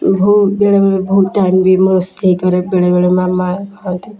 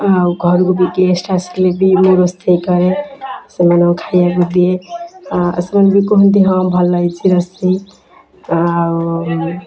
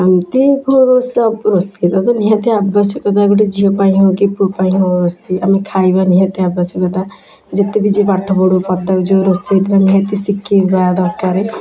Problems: constant background noise, continuous background conversations